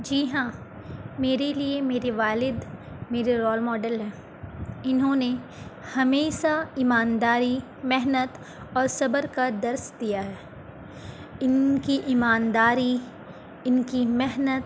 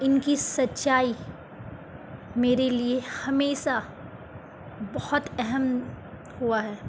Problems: constant background noise